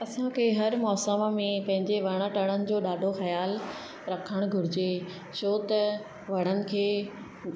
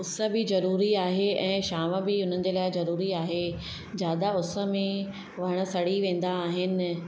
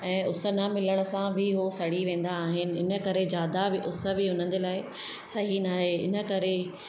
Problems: constant background noise, echo